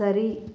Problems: low volume